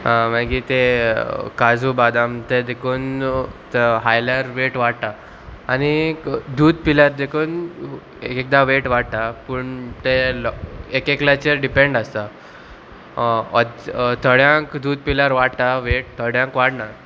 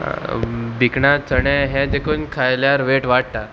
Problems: constant background noise